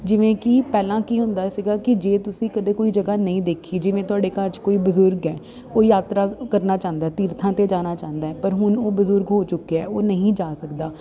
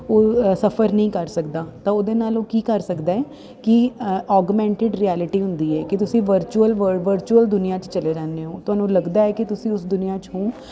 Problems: background sounds at intervals